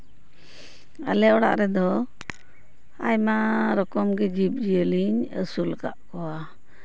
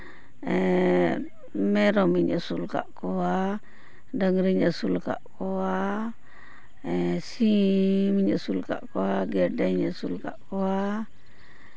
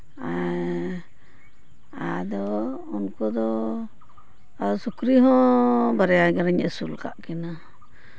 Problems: none marked